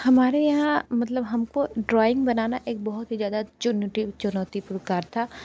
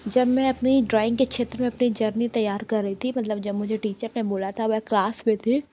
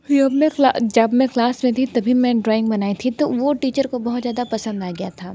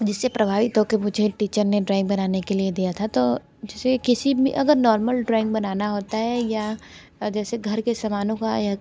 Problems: none marked